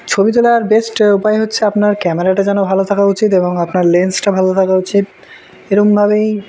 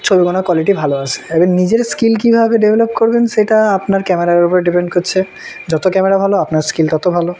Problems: none marked